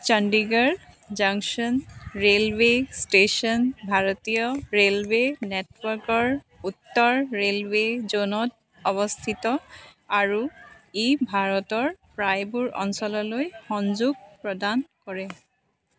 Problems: constant background noise